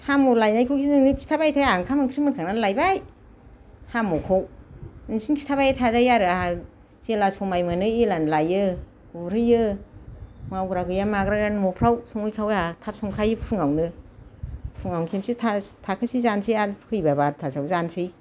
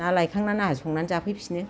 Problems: none marked